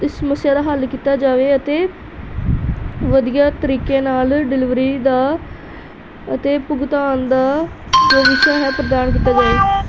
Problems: background sounds at intervals